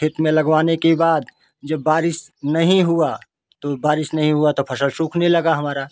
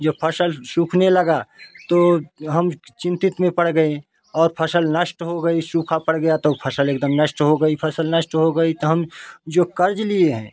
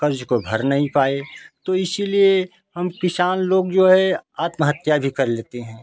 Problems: none marked